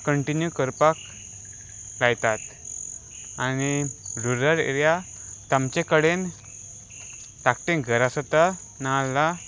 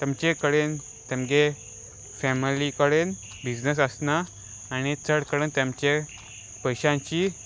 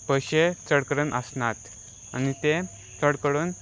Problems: none marked